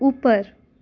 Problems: background sounds at intervals